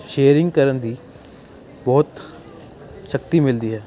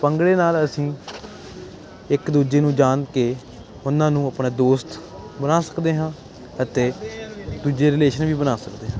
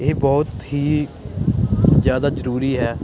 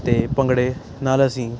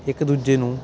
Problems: constant background noise